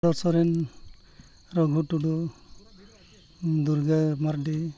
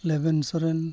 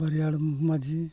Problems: background conversations at intervals